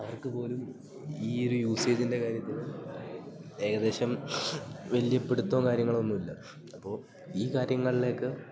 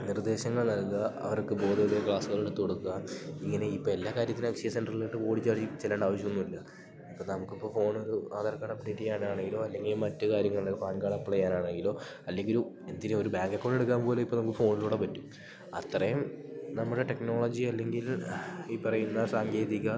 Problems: background sounds at intervals